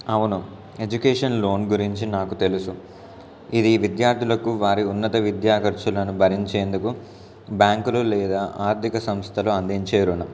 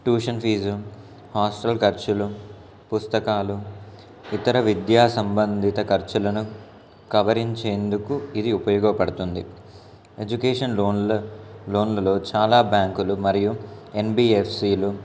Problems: constant background noise, background conversations at intervals